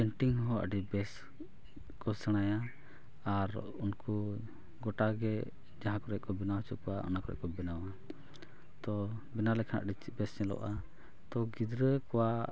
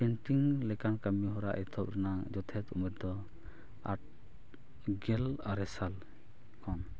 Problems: none marked